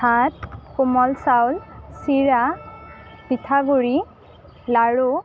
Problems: none marked